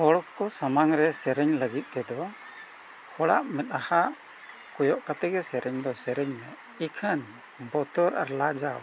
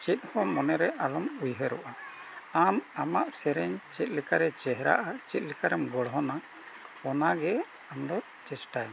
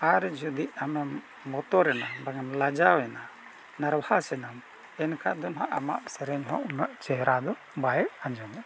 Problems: none marked